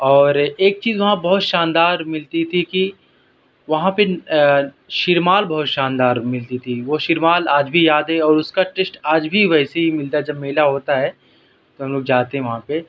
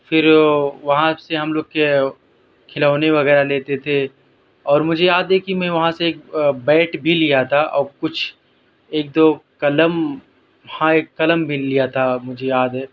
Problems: constant background noise